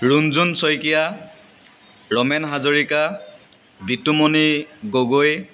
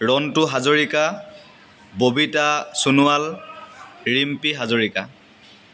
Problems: constant background noise